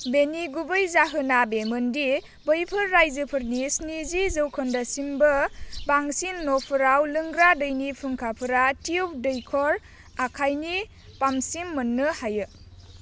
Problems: constant background noise